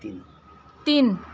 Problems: background sounds at intervals